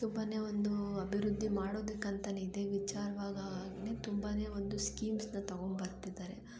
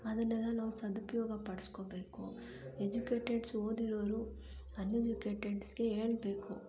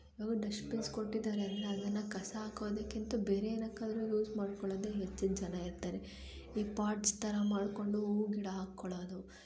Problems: low volume